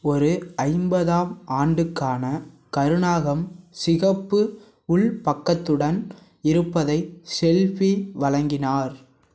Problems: none marked